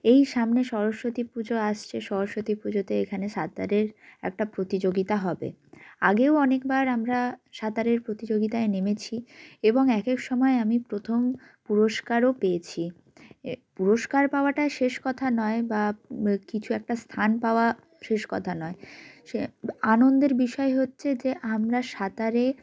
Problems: background sounds at intervals, background conversations at intervals